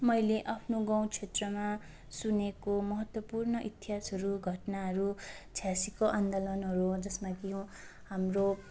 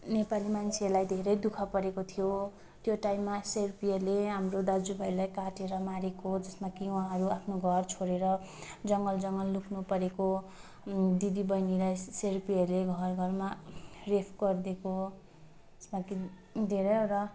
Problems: none marked